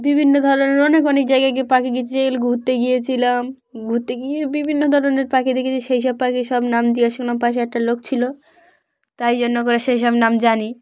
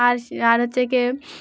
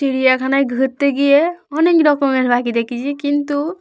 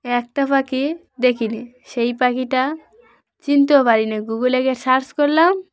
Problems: background conversations at intervals